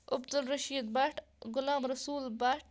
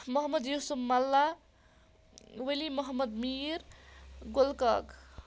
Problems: none marked